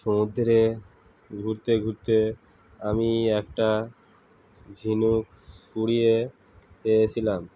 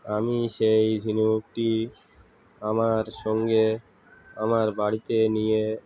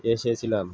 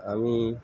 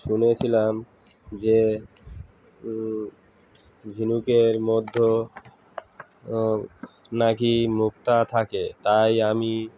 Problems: constant background noise